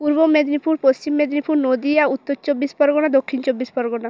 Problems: none marked